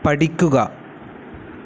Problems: constant background noise